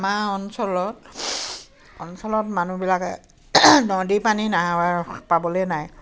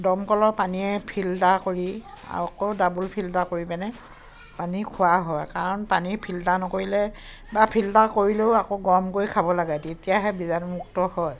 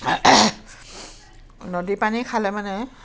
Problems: constant background noise, background conversations at intervals